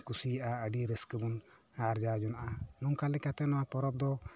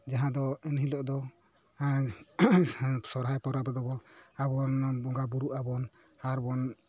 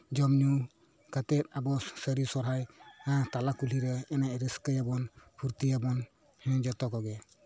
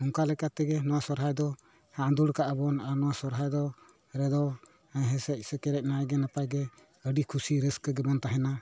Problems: background sounds at intervals